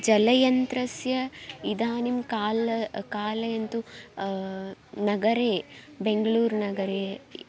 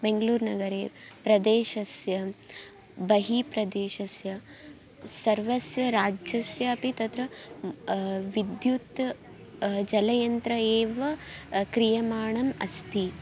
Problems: low volume